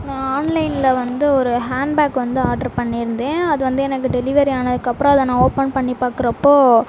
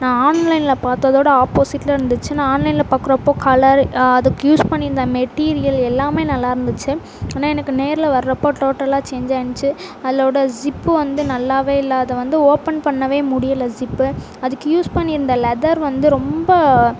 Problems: constant background noise